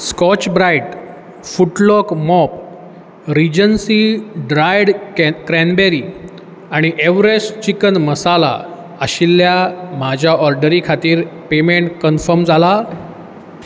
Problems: background sounds at intervals